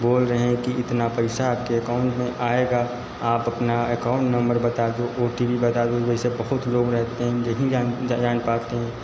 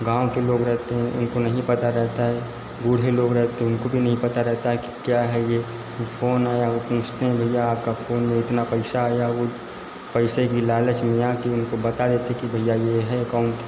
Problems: constant background noise, echo